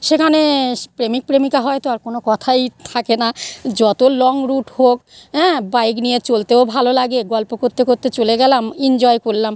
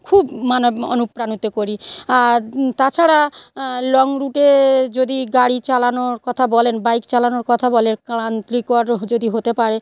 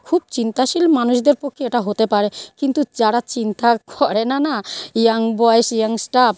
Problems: none marked